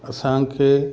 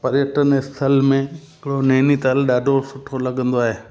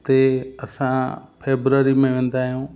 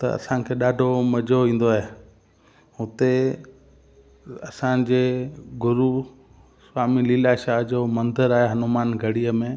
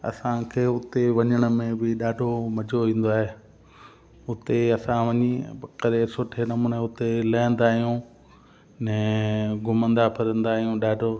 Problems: constant background noise, echo